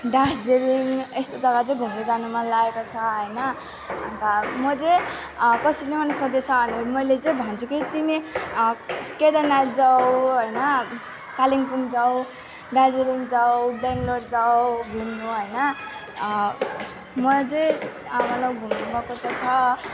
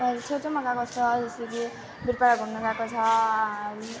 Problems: continuous background conversations